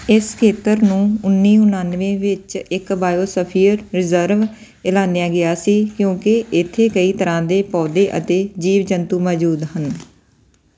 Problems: background sounds at intervals